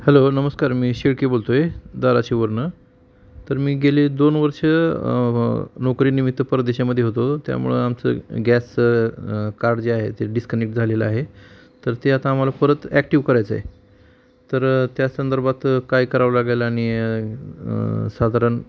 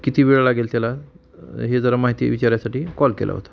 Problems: background sounds at intervals